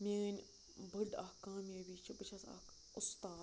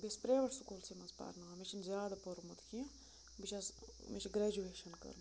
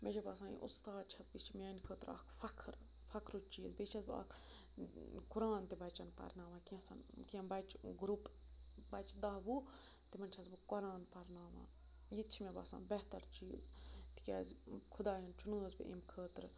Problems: constant background noise, low volume